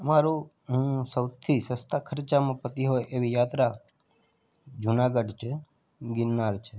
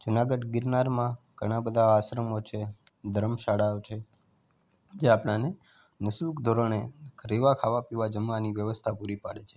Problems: background sounds at intervals